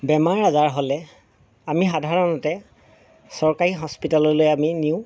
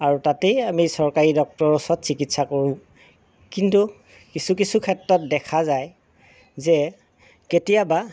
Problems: none marked